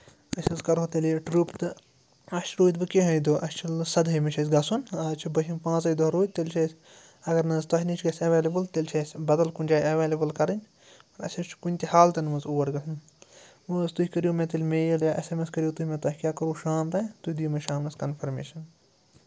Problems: none marked